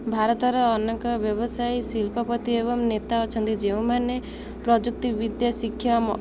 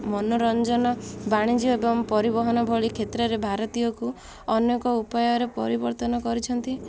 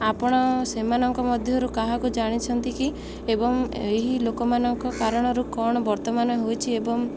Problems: constant background noise